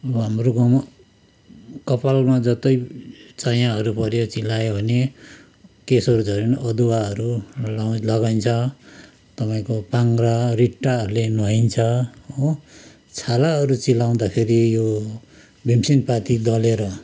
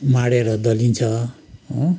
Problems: none marked